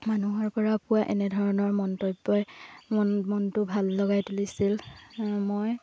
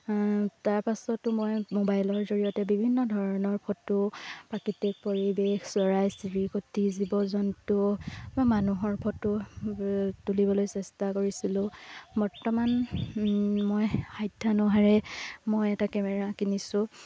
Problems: constant background noise